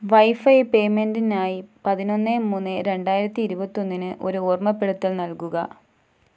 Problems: none marked